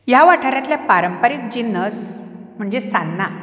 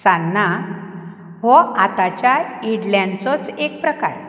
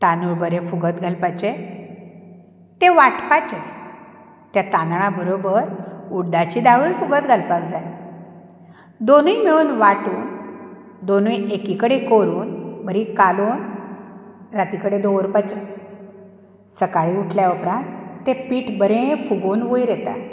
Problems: background sounds at intervals